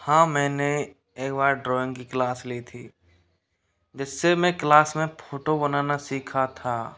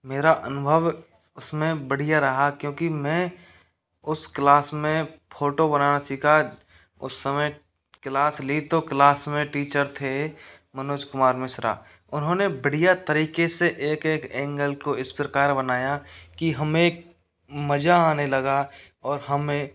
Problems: background sounds at intervals